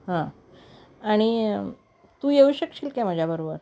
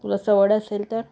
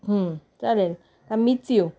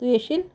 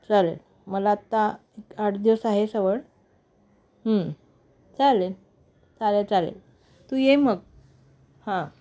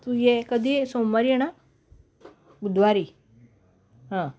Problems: none marked